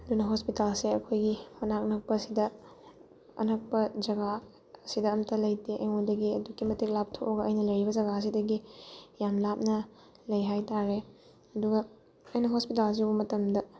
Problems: background sounds at intervals